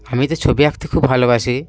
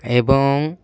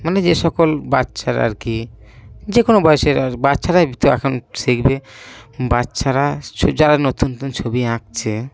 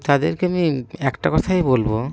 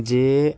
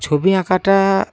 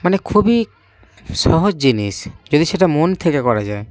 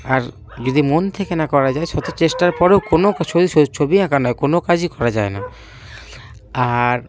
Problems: background sounds at intervals, background conversations at intervals